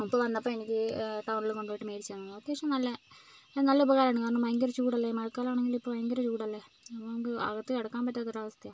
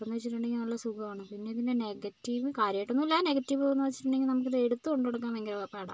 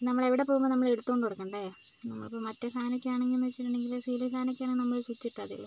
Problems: low volume